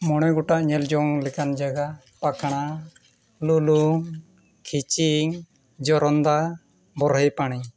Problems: none marked